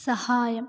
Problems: none marked